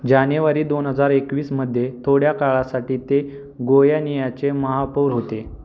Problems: constant background noise